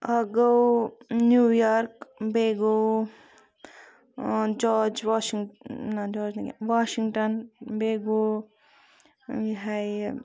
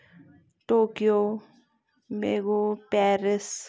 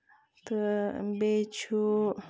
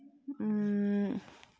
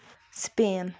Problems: low volume